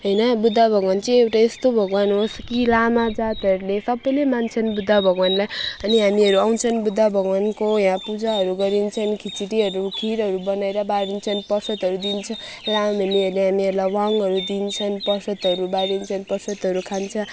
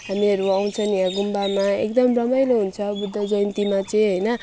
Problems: constant background noise